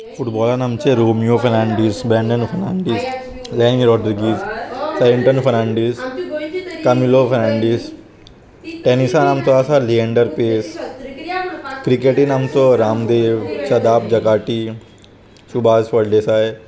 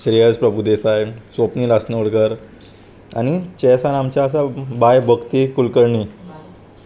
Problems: constant background noise